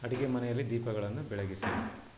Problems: low volume